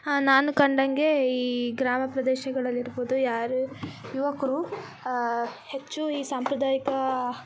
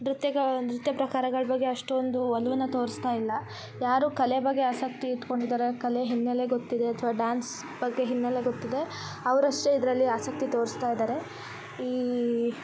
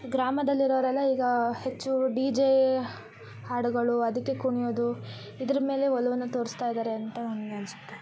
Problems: background sounds at intervals